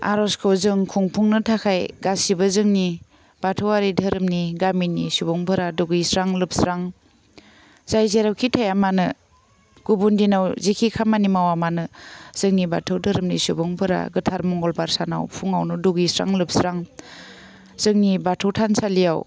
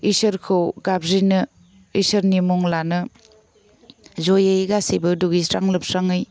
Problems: none marked